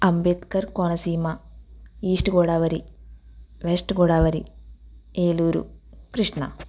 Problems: constant background noise